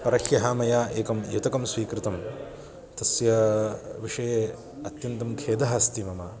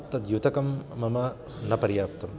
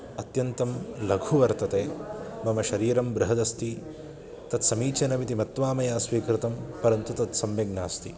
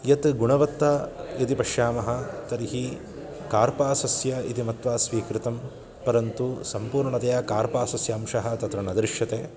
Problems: constant background noise